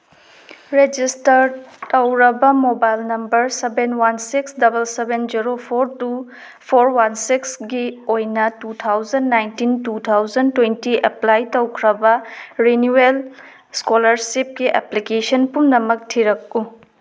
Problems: none marked